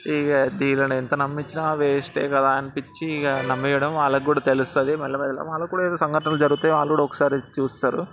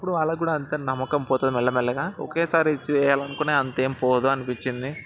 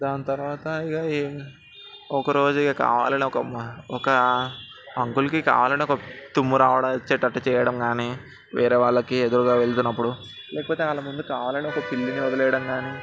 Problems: background sounds at intervals, continuous background conversations